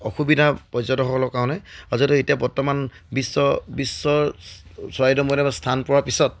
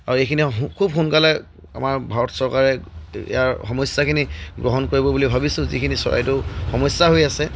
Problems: none marked